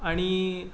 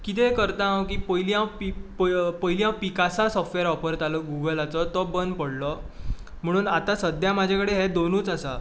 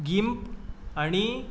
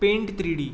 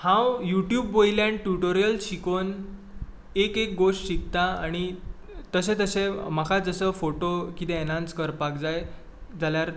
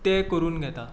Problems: constant background noise